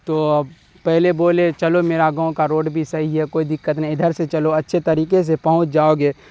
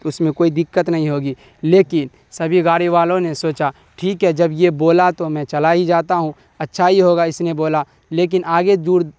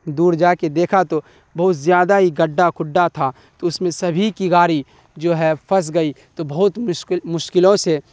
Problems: none marked